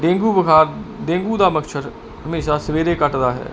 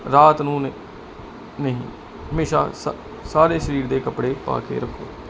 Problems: background sounds at intervals